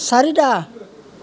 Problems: none marked